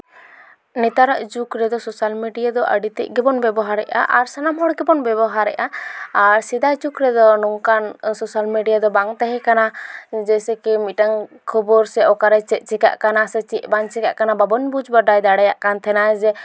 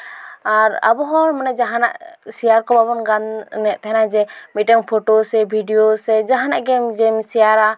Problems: background sounds at intervals, background conversations at intervals